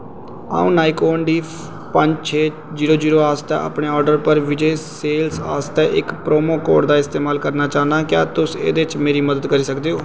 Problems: constant background noise